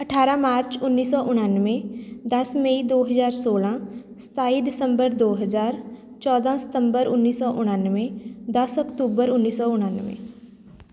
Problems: background sounds at intervals